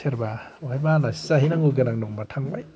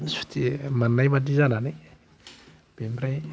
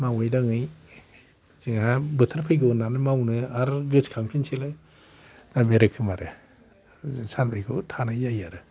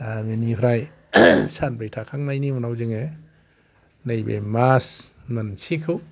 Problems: none marked